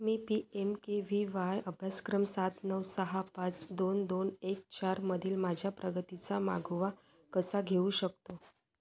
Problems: none marked